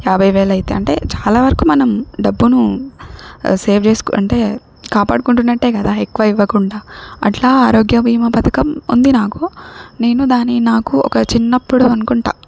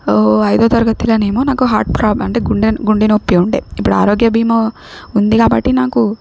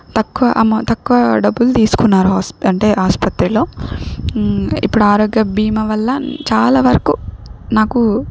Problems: none marked